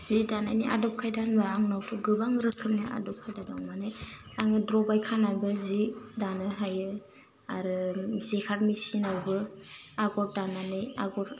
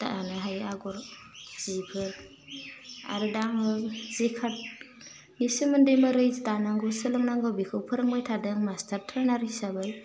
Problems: constant background noise